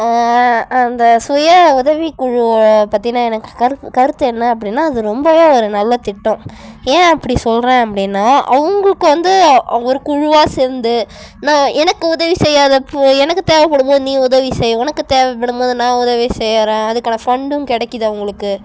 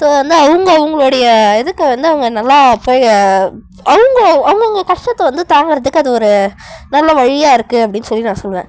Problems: none marked